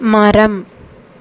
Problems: constant background noise